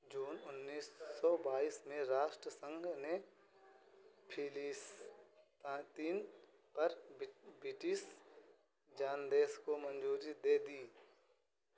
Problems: constant background noise